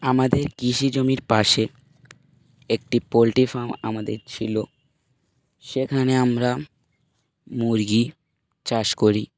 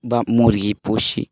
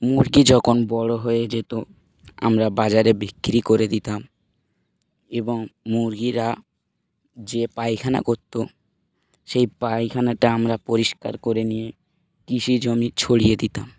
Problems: background sounds at intervals